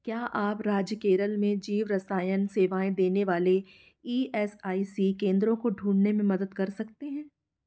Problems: background sounds at intervals